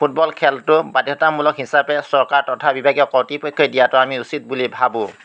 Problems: none marked